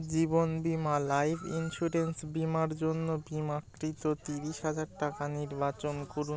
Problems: constant background noise, background conversations at intervals